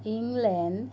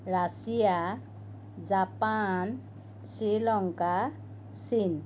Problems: constant background noise